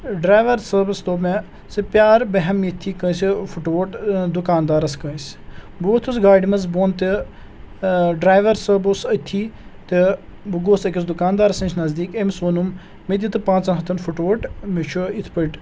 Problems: background sounds at intervals